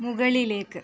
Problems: none marked